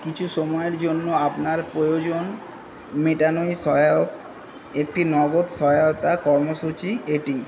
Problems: constant background noise